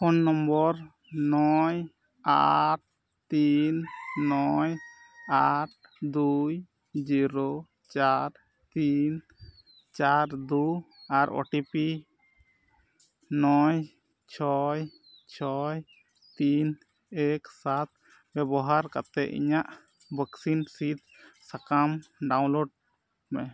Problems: none marked